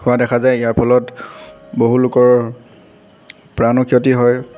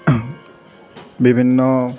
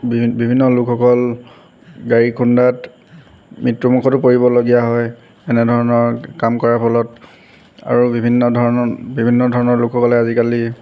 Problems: background sounds at intervals